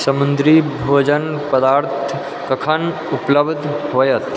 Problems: constant background noise